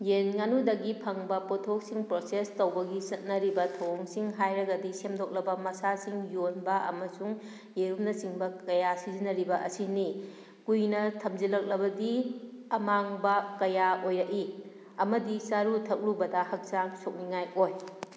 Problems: background sounds at intervals